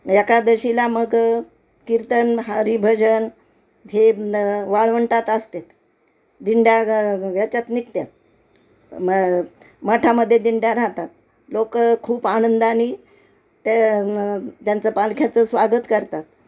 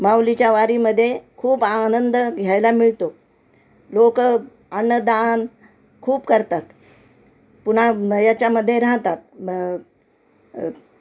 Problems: constant background noise, background conversations at intervals